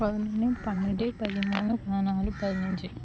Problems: constant background noise